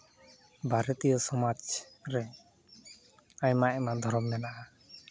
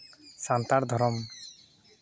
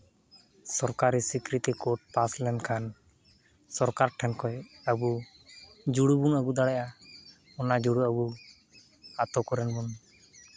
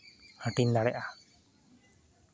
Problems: none marked